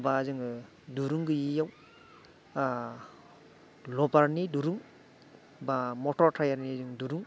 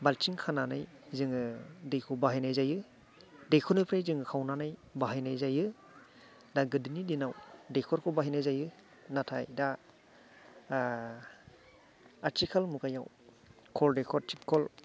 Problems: none marked